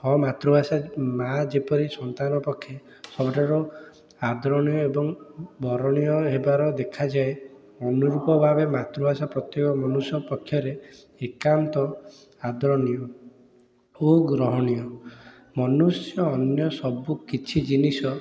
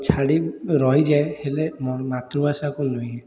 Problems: constant background noise, continuous background conversations